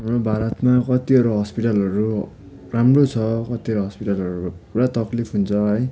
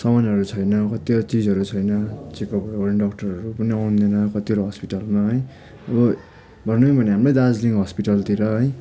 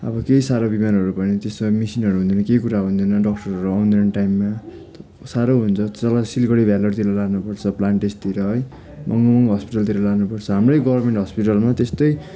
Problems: background sounds at intervals, continuous background conversations